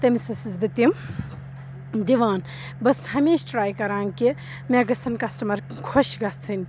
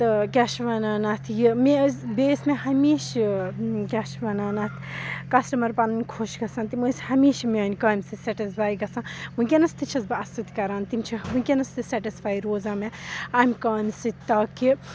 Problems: none marked